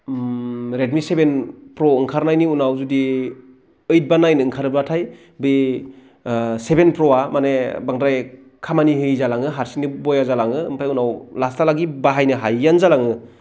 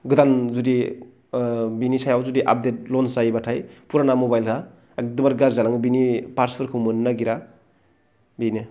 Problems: low volume